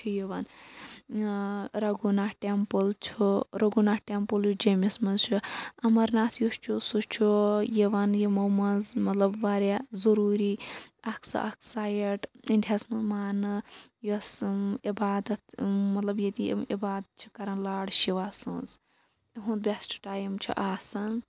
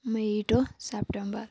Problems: none marked